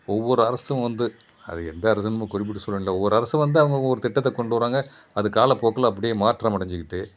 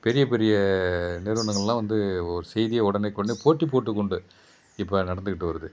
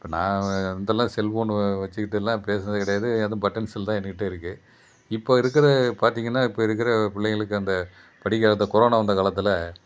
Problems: none marked